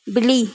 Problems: constant background noise